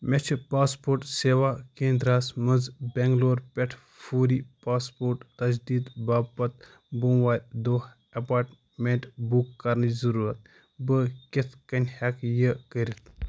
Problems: none marked